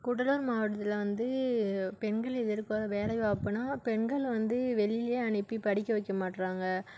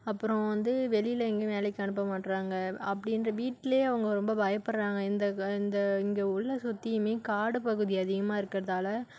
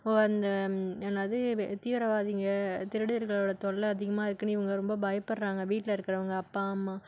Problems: none marked